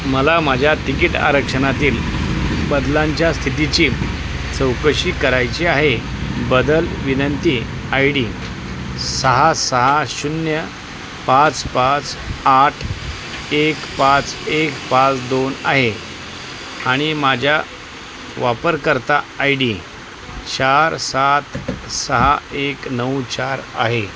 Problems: constant background noise, background conversations at intervals